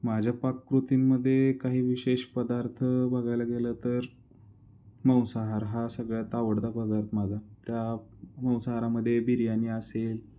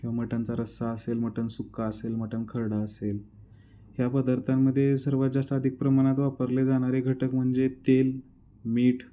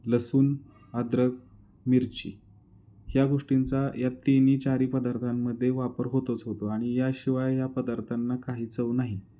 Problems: background sounds at intervals